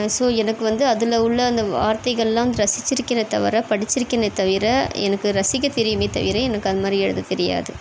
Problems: constant background noise